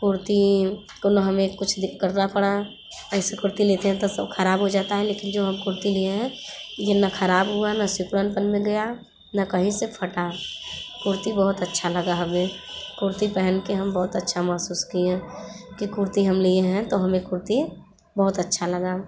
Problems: constant background noise, background conversations at intervals